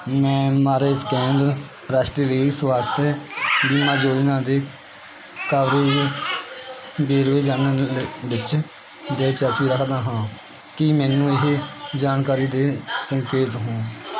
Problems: constant background noise